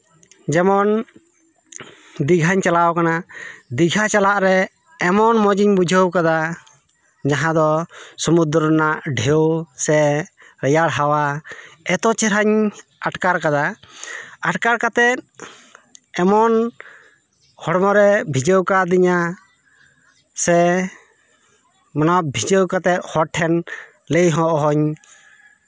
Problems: background sounds at intervals, continuous background conversations